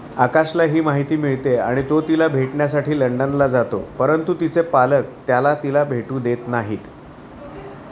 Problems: none marked